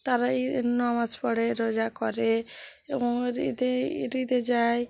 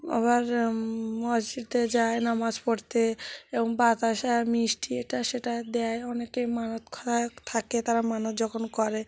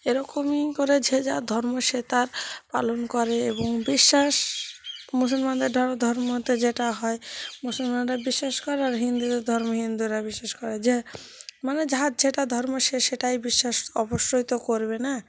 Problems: constant background noise, continuous background conversations